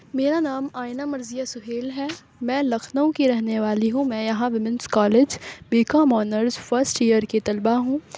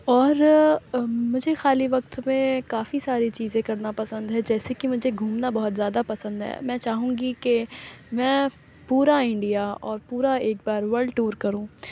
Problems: none marked